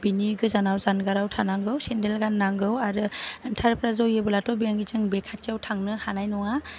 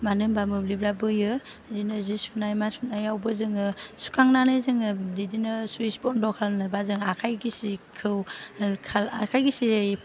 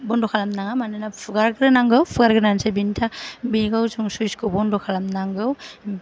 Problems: low volume